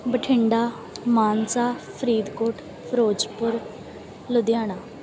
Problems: background sounds at intervals, background conversations at intervals